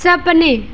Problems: background sounds at intervals